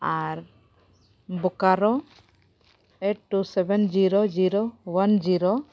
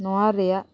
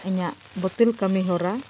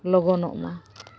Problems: none marked